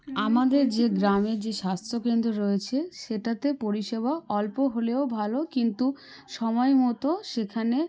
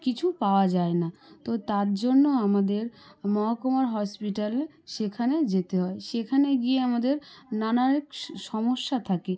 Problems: background conversations at intervals